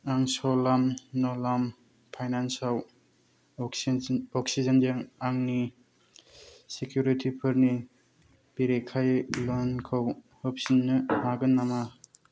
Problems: none marked